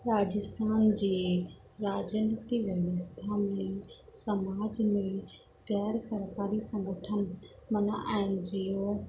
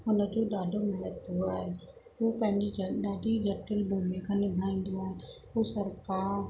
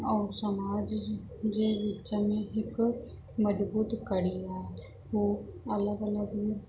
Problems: constant background noise